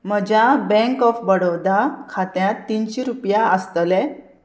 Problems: none marked